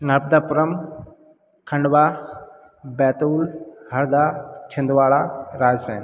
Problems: background sounds at intervals